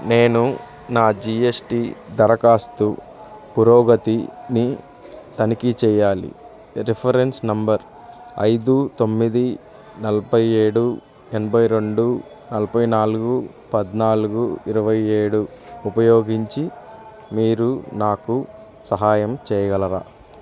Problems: none marked